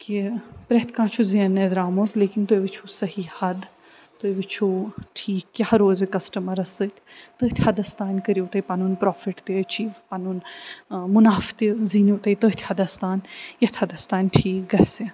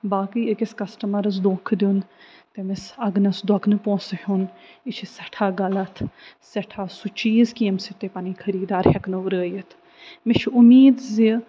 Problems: none marked